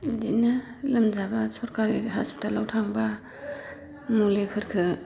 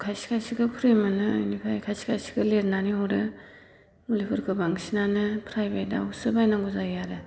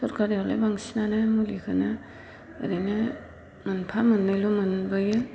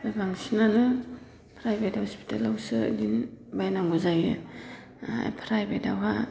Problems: low volume